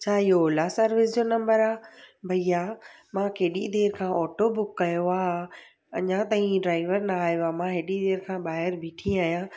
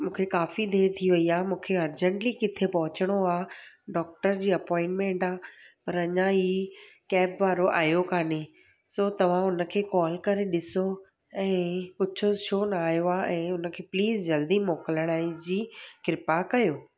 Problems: none marked